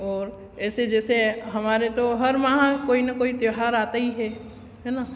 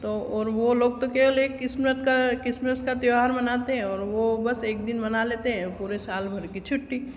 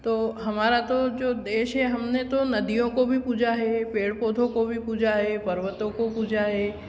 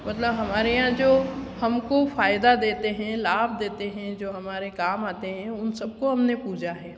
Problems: constant background noise